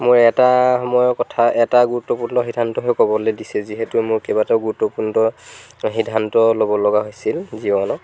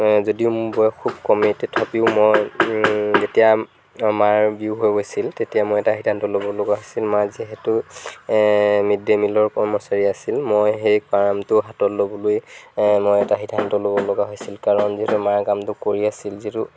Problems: background sounds at intervals